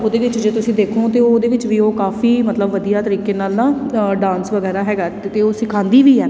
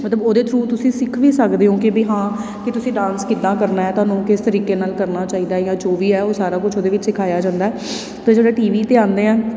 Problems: background sounds at intervals